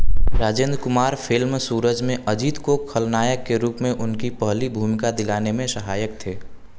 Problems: none marked